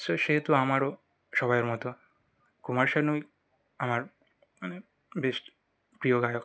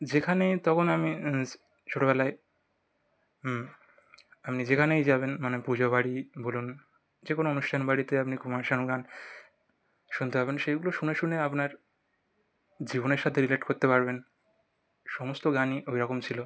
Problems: background sounds at intervals